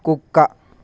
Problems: none marked